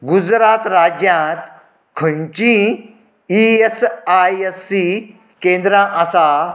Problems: continuous background conversations